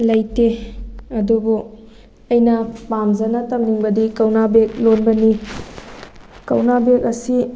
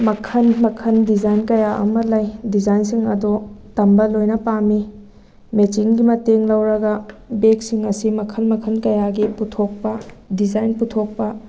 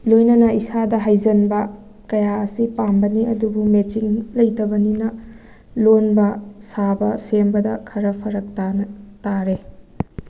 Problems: background sounds at intervals